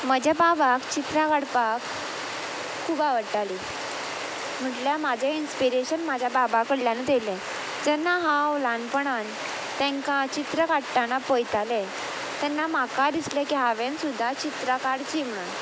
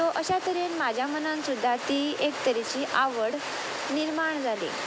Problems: constant background noise